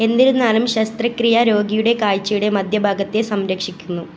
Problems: none marked